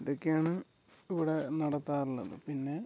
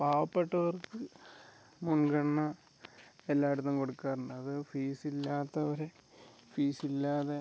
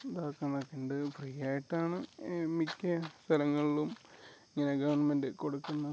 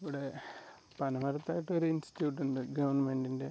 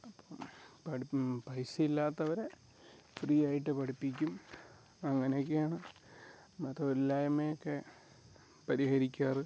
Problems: background sounds at intervals